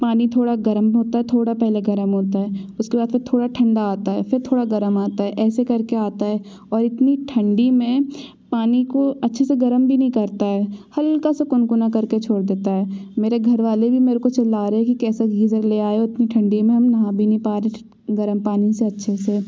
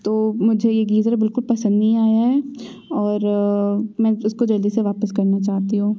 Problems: constant background noise